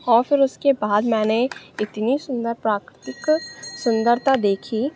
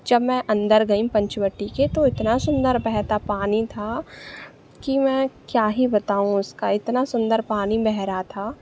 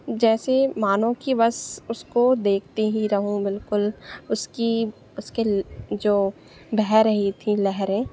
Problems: constant background noise